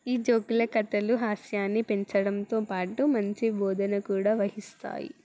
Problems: background sounds at intervals, background conversations at intervals